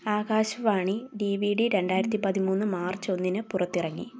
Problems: background sounds at intervals